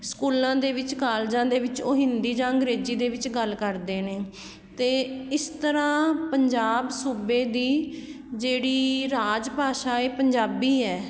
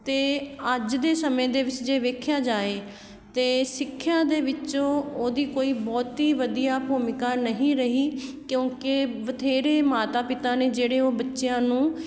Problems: none marked